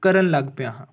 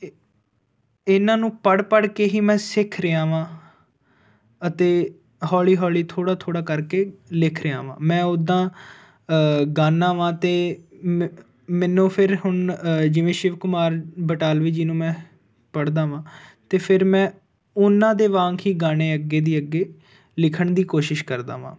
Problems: background sounds at intervals